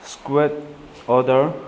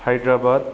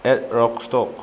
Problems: constant background noise